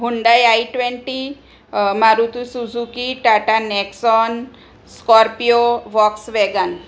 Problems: none marked